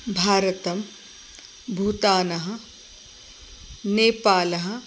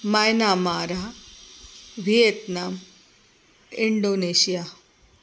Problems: constant background noise